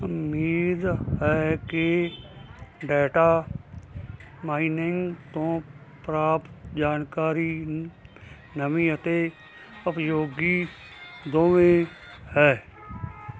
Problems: constant background noise